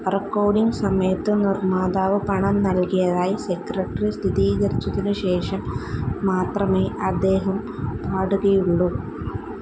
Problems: constant background noise, low volume